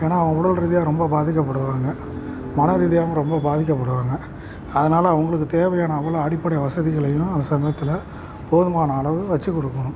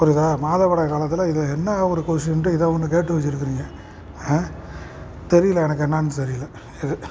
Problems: constant background noise